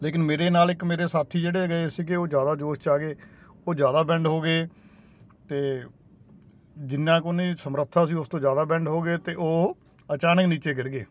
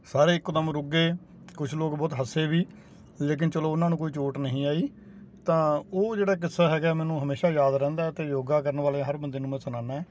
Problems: constant background noise